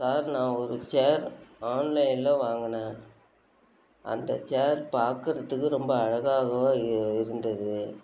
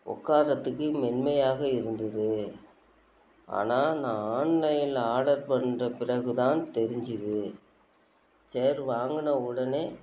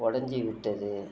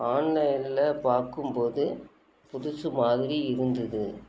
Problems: constant background noise